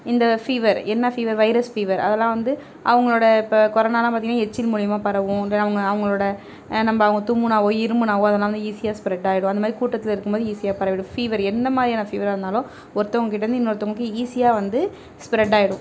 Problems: continuous background conversations